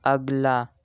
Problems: constant background noise